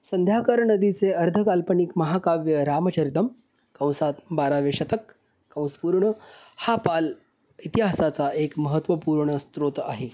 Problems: background sounds at intervals, echo